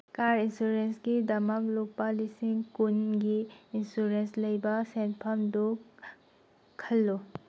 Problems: background sounds at intervals